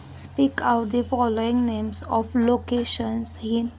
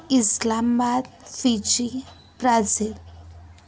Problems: constant background noise